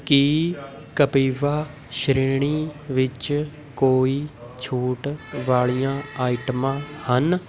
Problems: constant background noise, continuous background conversations